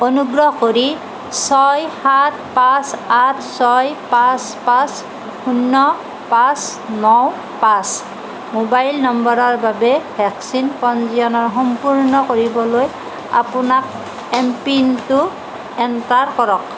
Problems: none marked